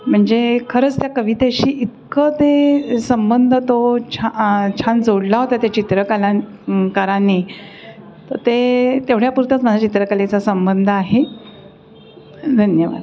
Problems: none marked